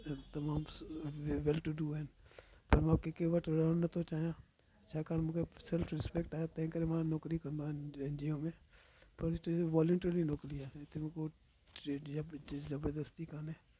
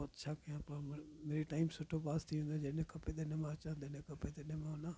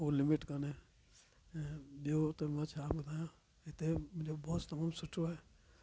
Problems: constant background noise